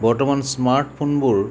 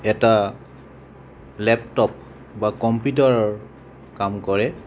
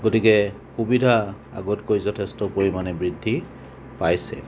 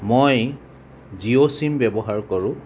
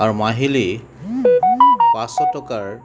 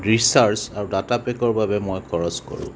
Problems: constant background noise